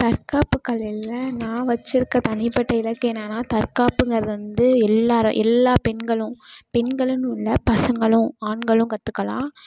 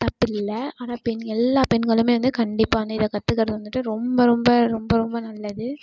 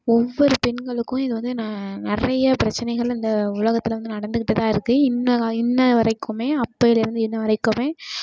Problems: constant background noise